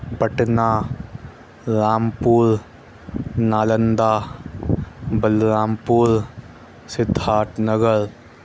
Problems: constant background noise